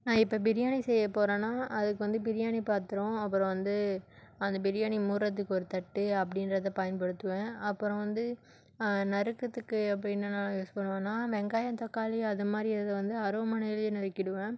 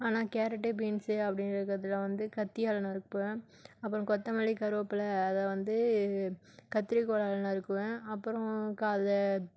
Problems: none marked